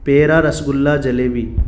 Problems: constant background noise